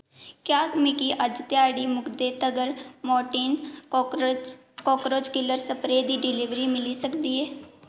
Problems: background sounds at intervals, echo